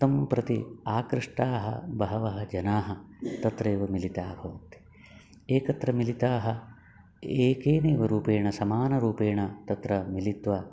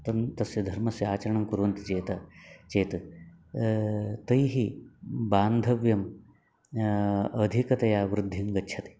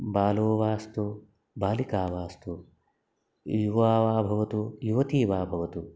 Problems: background sounds at intervals